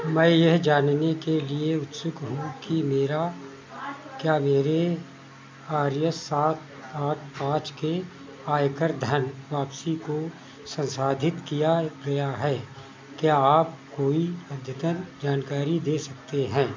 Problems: constant background noise